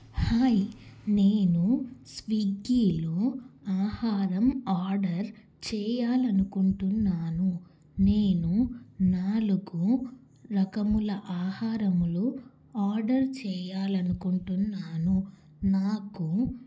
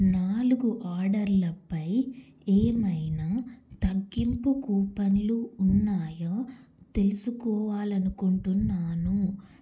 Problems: none marked